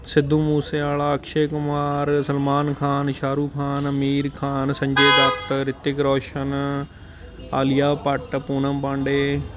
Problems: constant background noise